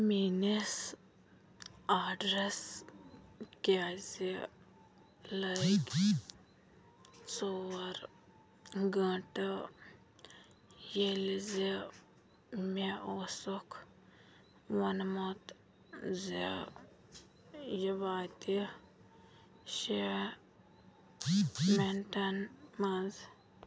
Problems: low volume